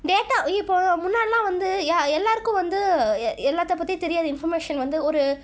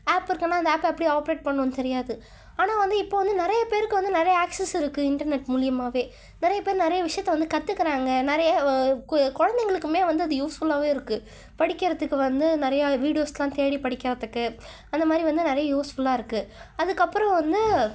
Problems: none marked